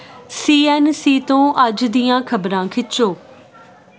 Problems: constant background noise